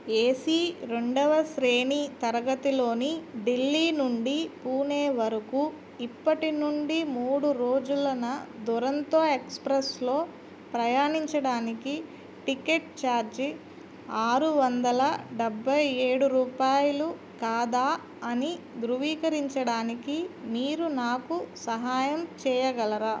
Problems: none marked